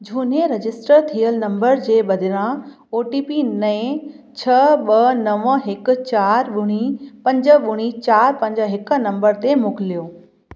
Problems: constant background noise, echo